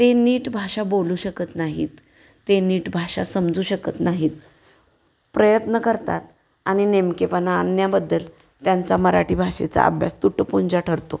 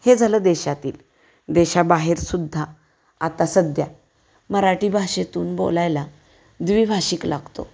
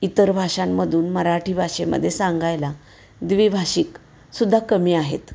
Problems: background sounds at intervals